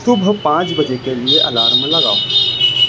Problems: constant background noise